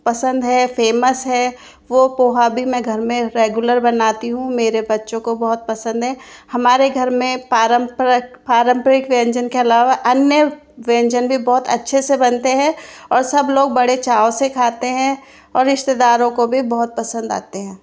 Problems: constant background noise